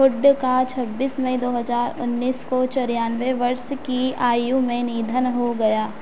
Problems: constant background noise